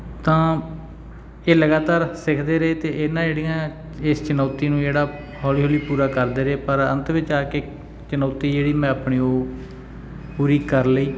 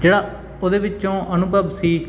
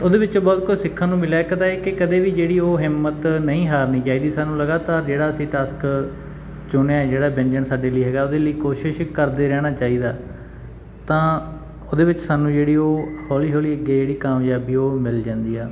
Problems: background sounds at intervals